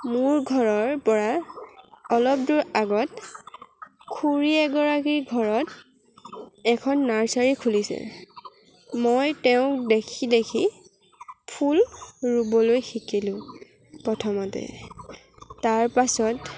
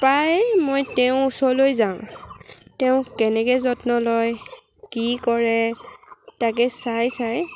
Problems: none marked